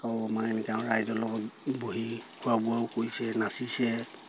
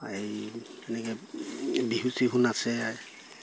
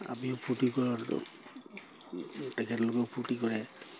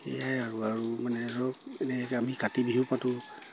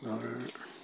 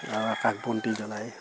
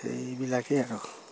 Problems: constant background noise